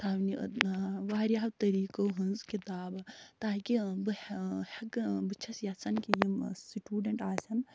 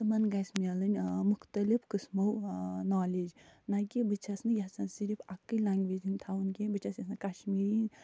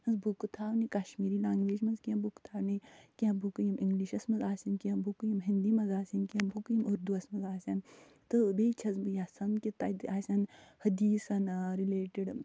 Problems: none marked